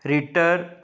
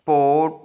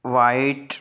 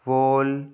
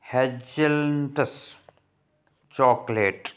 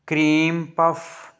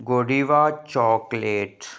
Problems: background sounds at intervals